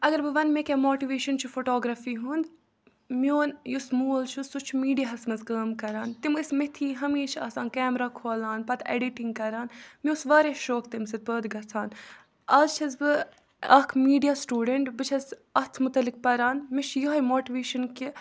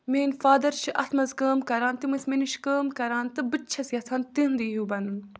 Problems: background sounds at intervals